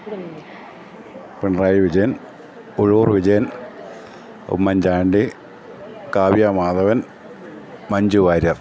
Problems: none marked